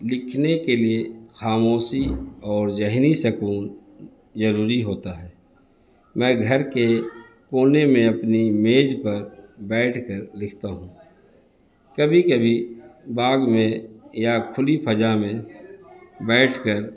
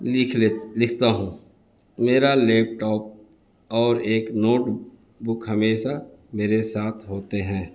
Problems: constant background noise